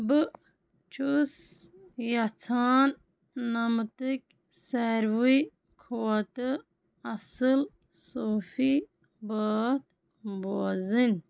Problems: none marked